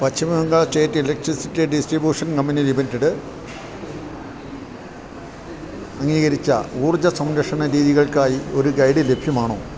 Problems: none marked